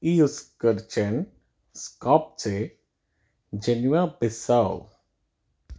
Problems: none marked